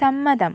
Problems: low volume